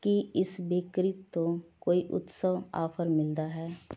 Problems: none marked